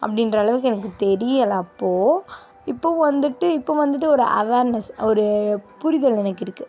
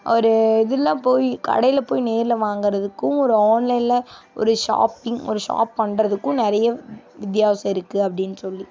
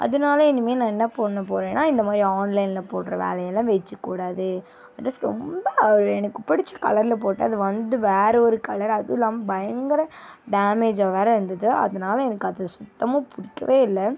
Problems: constant background noise